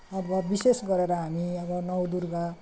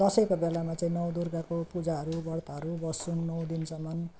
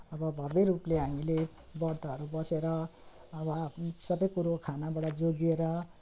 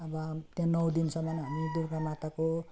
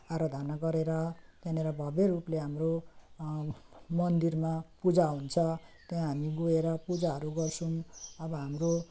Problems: constant background noise